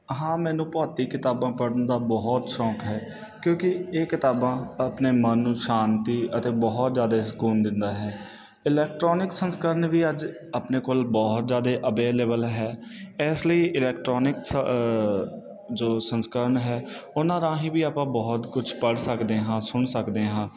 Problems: none marked